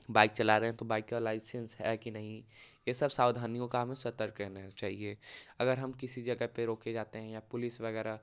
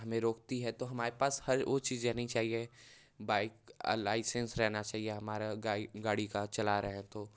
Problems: none marked